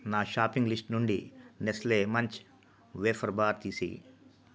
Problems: low volume